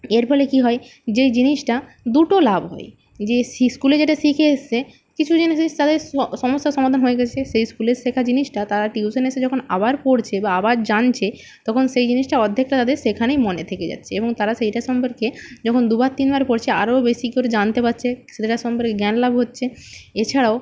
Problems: low volume